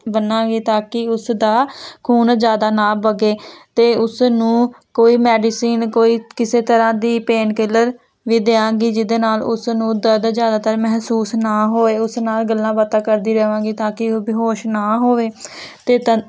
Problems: constant background noise